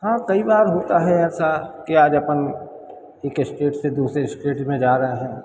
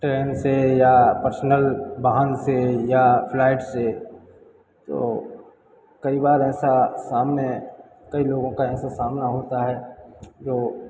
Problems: background sounds at intervals